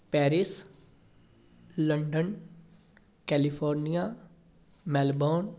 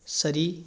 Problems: constant background noise, background conversations at intervals